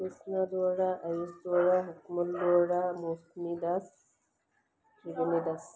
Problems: background sounds at intervals